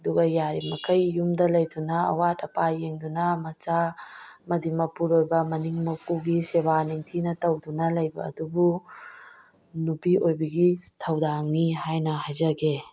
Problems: none marked